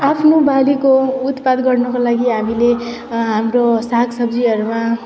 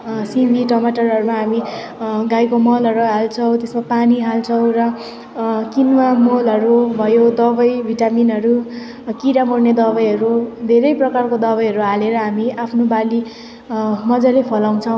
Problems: constant background noise